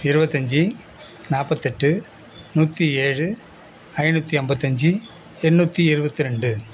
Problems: none marked